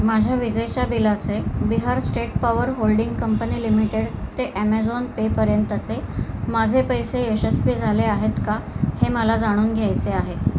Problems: none marked